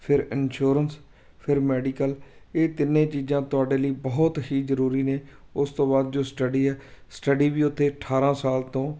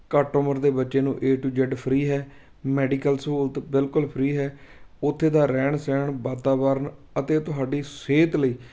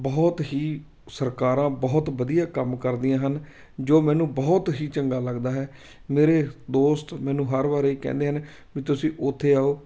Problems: constant background noise